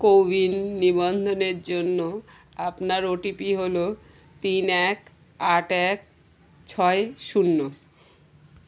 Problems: constant background noise